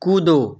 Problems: none marked